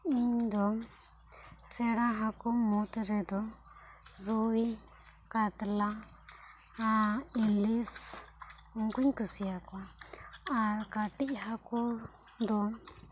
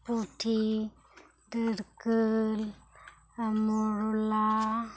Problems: background sounds at intervals, low volume